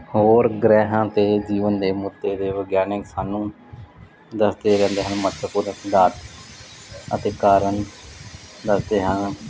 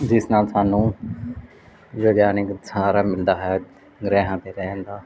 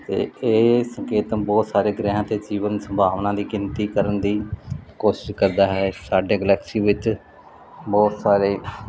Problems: background sounds at intervals